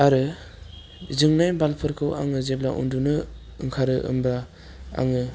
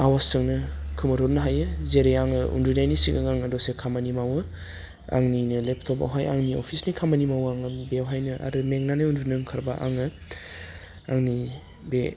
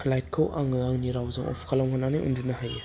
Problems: low volume